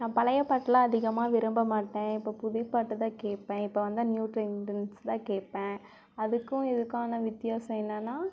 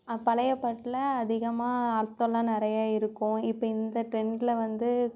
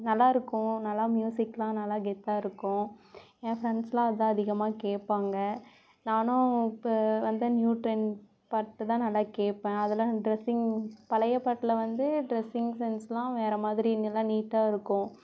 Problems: background sounds at intervals